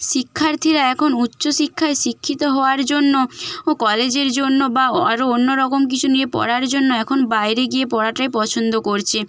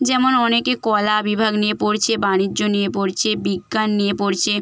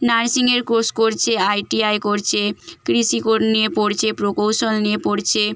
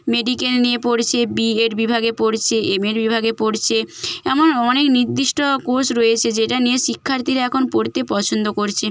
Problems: none marked